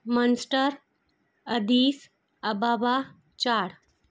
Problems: constant background noise